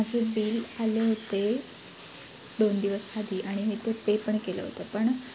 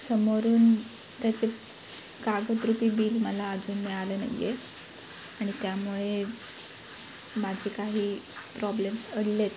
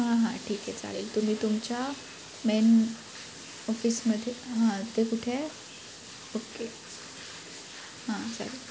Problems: none marked